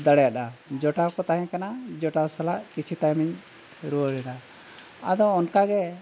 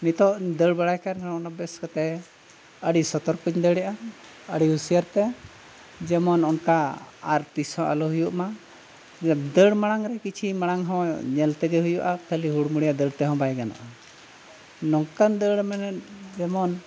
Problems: constant background noise